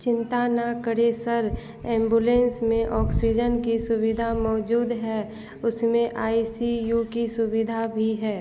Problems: none marked